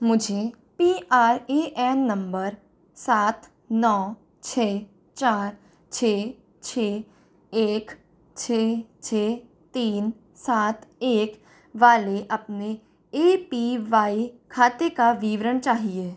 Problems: none marked